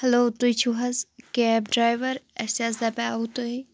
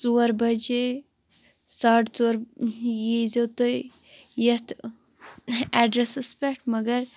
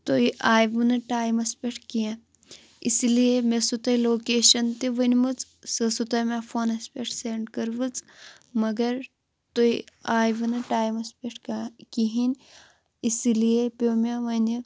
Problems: constant background noise